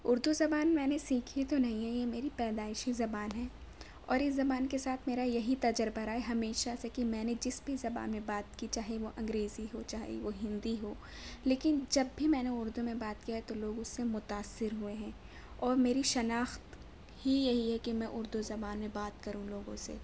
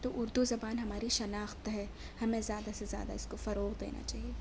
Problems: none marked